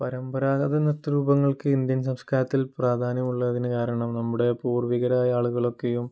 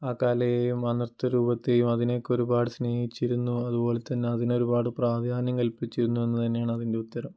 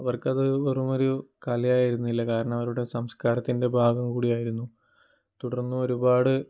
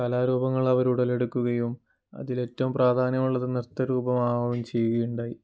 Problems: low volume